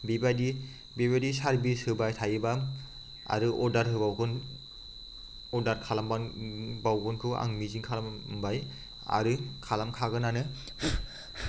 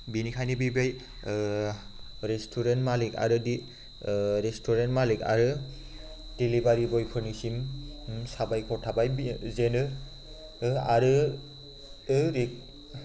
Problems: constant background noise